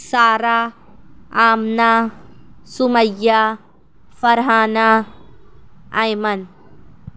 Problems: none marked